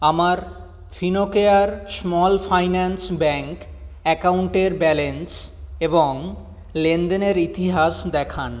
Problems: none marked